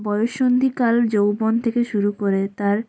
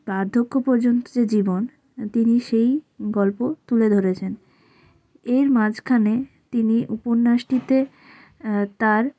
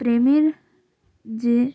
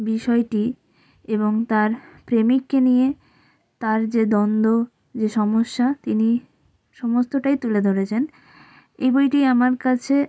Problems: none marked